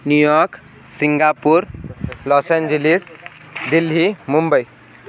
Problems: constant background noise, background conversations at intervals